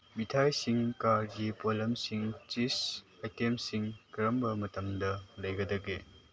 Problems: none marked